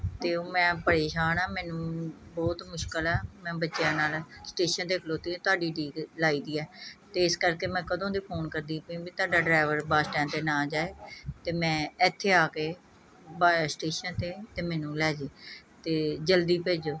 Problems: background sounds at intervals, background conversations at intervals